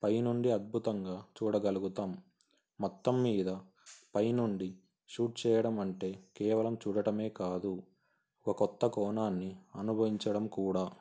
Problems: constant background noise